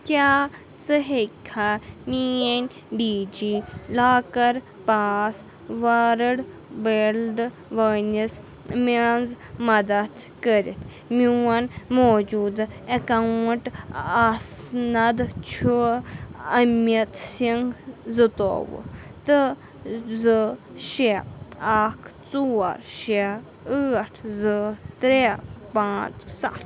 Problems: constant background noise